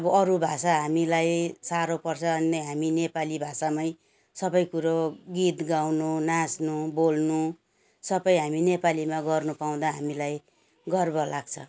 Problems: background sounds at intervals